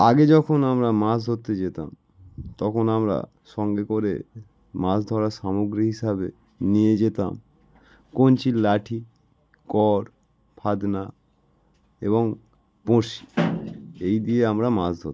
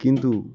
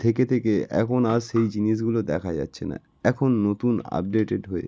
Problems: none marked